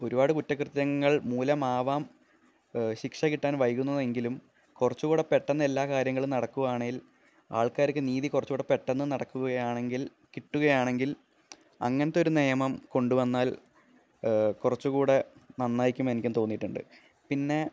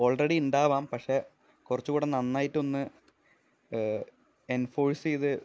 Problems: none marked